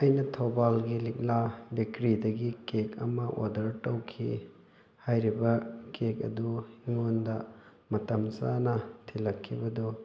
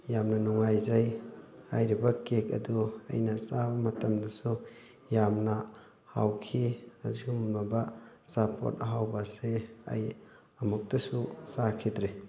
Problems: background conversations at intervals